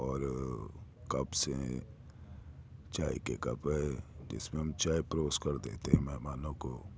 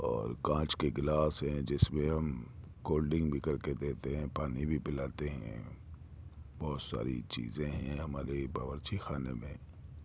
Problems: low volume